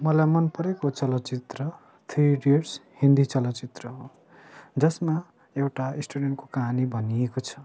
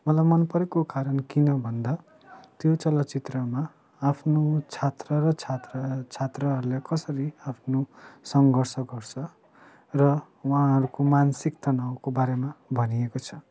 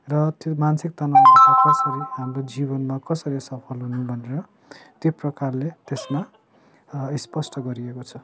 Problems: none marked